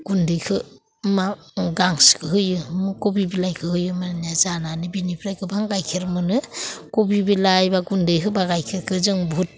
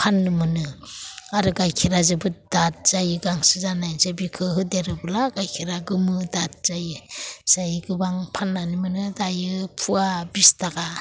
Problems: none marked